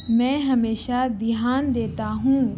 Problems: constant background noise